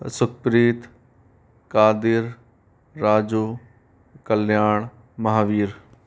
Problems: background sounds at intervals